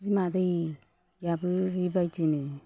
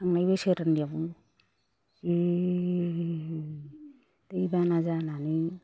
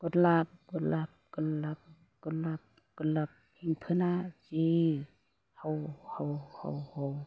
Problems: low volume